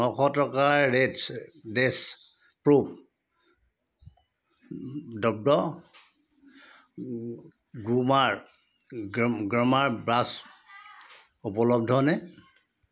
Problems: constant background noise